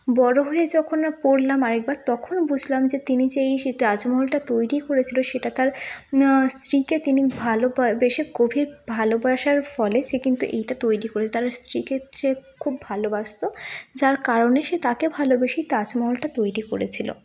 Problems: constant background noise